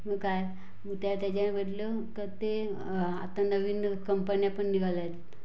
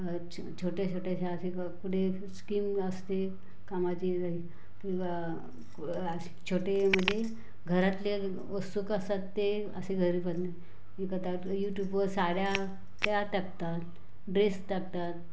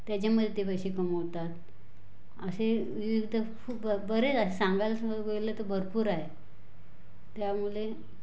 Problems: constant background noise, background conversations at intervals